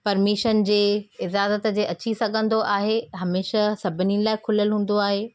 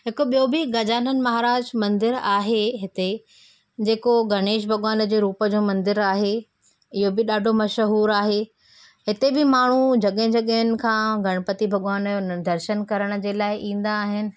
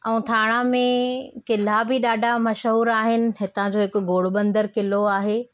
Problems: none marked